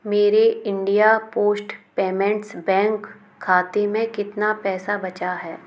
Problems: background sounds at intervals